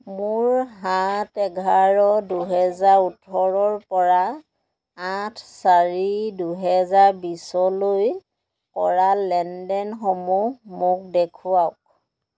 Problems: none marked